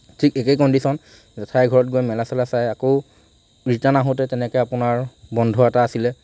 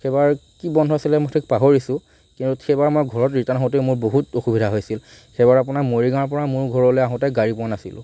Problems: none marked